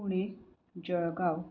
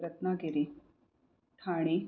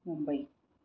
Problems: low volume